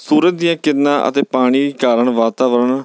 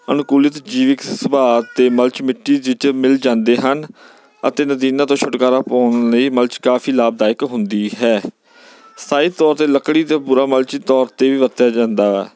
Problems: background sounds at intervals